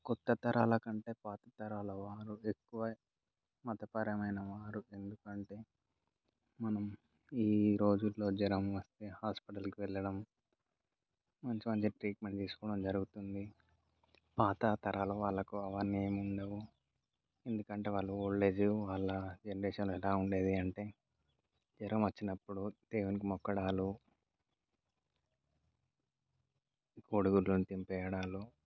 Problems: low volume